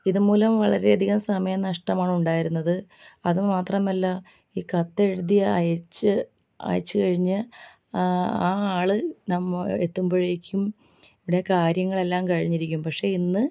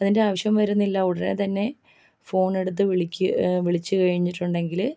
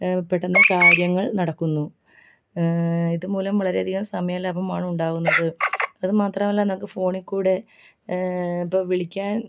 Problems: low volume